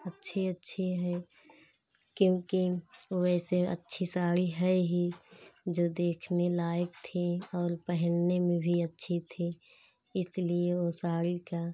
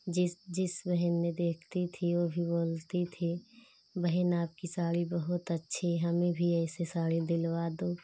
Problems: none marked